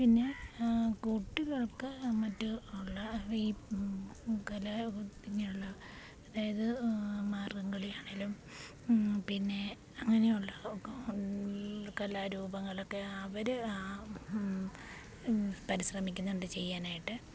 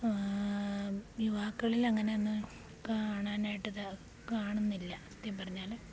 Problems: background sounds at intervals, low volume